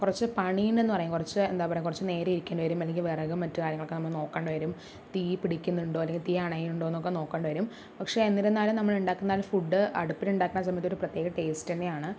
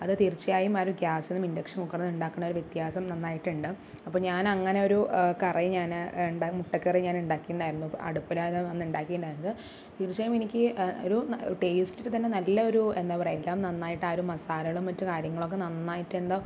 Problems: none marked